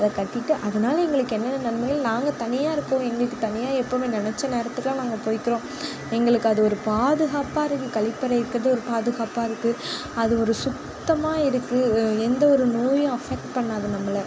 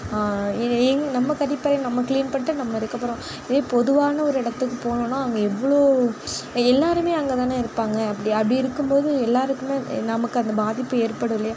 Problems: background conversations at intervals